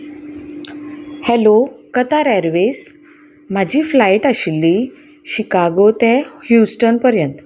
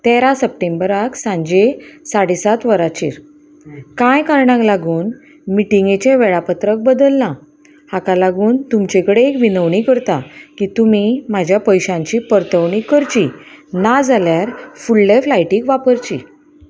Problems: none marked